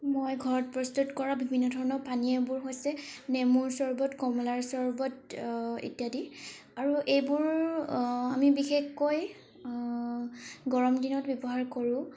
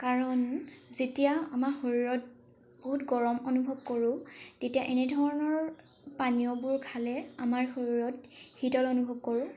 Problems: background sounds at intervals